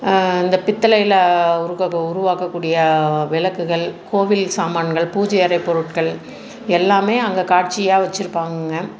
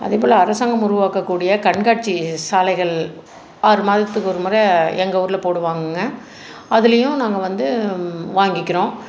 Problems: constant background noise